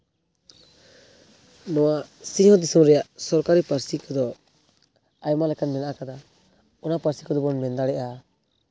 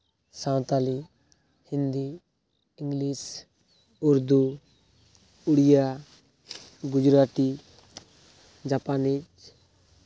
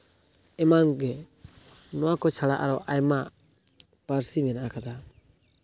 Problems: constant background noise